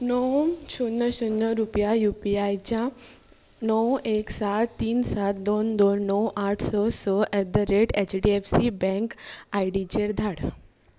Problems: background sounds at intervals